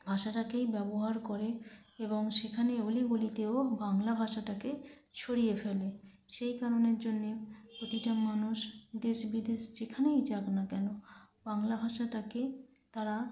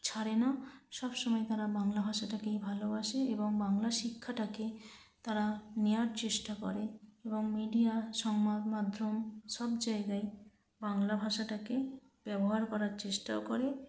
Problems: constant background noise, low volume